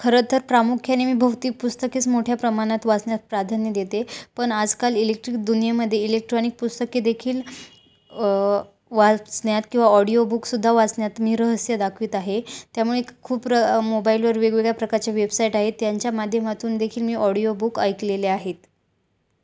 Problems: background sounds at intervals